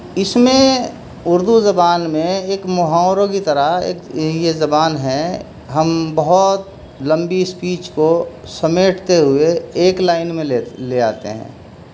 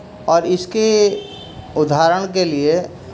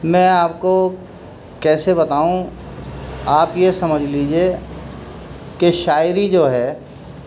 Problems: constant background noise